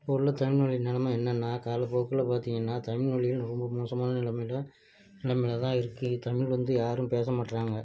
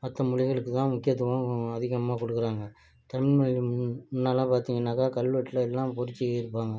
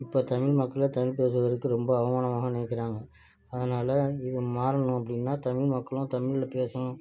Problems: low volume